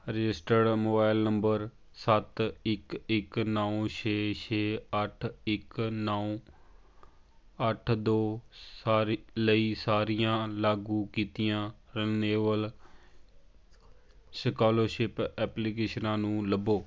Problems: constant background noise, background conversations at intervals